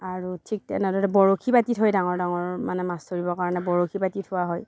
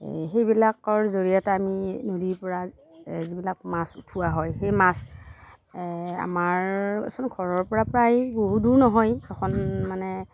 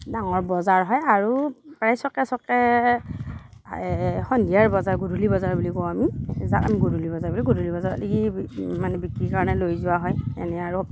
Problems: none marked